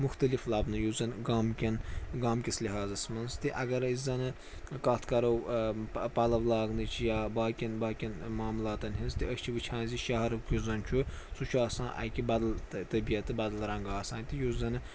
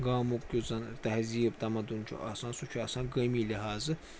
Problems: constant background noise, background conversations at intervals